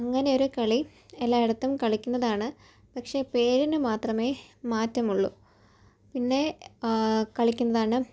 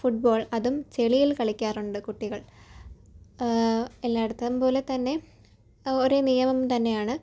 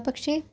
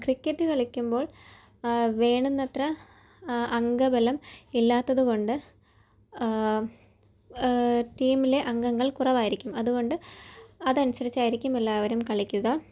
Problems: low volume